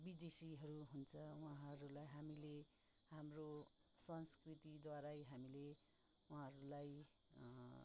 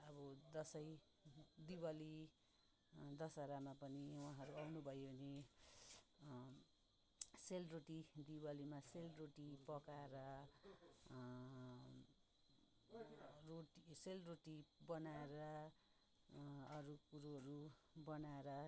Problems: none marked